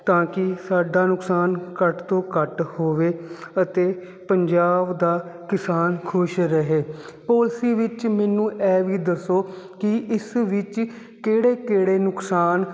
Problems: constant background noise